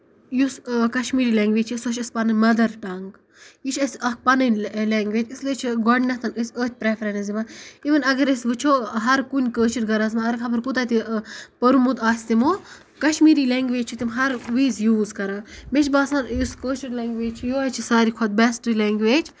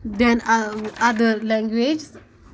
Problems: none marked